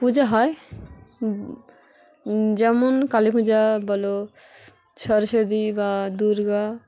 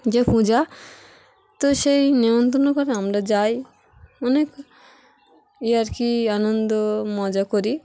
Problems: background sounds at intervals, background conversations at intervals